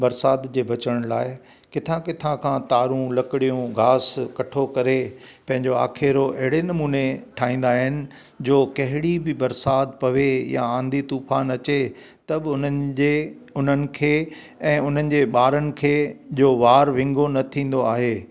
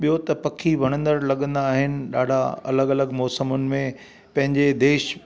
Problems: constant background noise